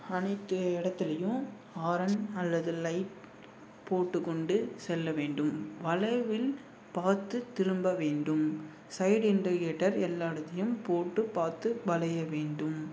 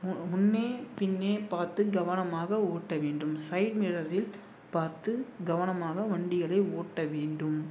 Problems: none marked